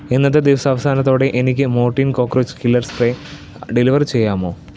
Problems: none marked